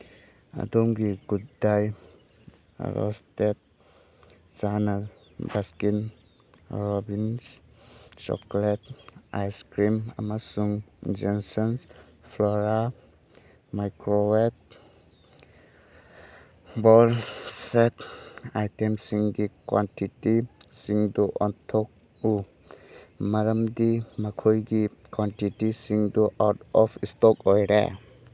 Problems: none marked